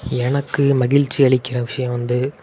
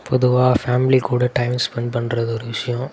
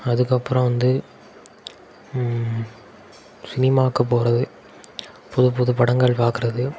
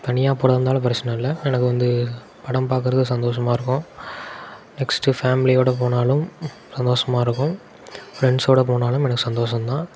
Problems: none marked